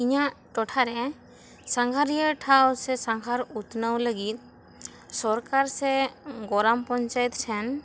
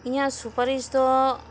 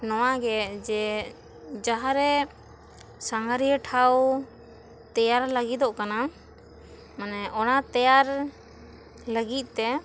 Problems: constant background noise